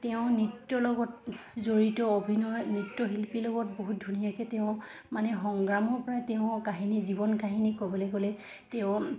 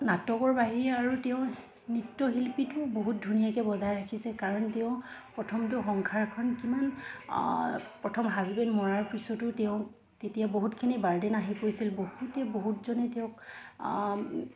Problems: constant background noise, background conversations at intervals